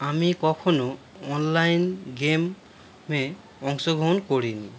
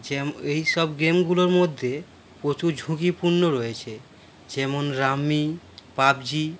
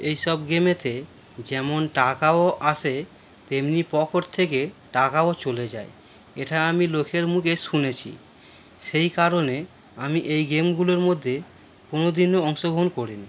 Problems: constant background noise